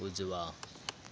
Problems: none marked